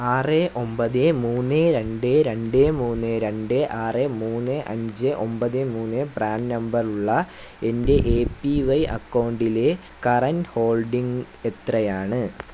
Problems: constant background noise